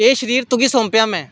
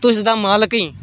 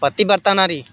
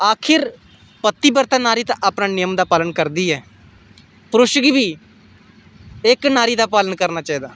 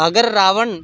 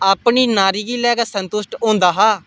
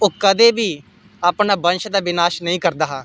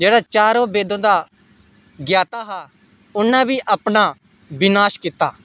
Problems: none marked